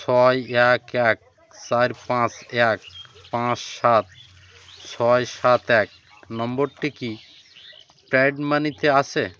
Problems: constant background noise, continuous background conversations